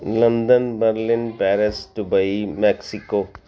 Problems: background conversations at intervals